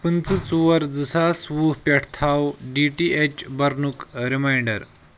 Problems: constant background noise